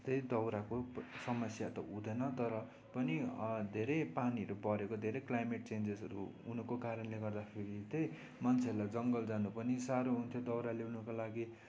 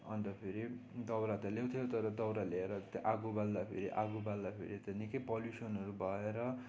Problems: constant background noise, low volume